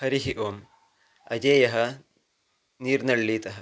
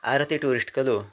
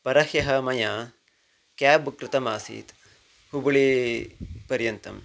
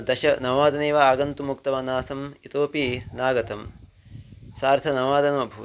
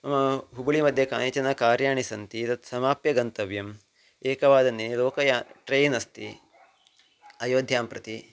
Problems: background sounds at intervals